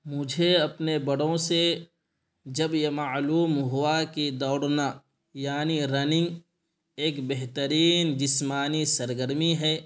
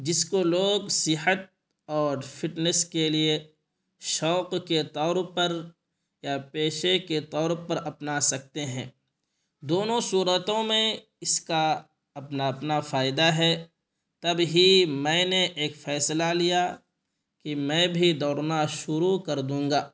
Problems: none marked